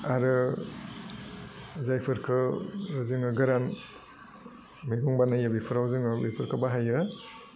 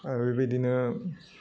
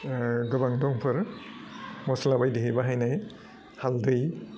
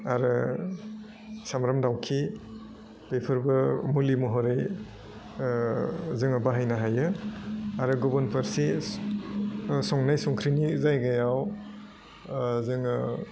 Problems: low volume